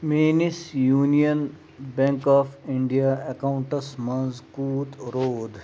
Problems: constant background noise